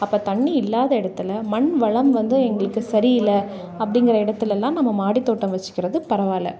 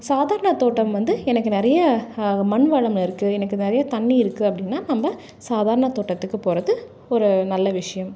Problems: background conversations at intervals